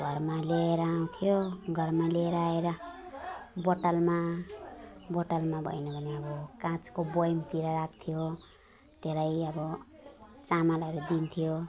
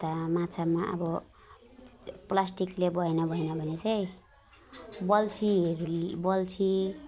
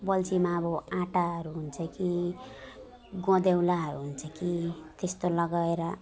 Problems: background sounds at intervals